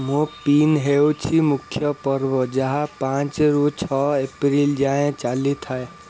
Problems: constant background noise